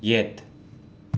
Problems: none marked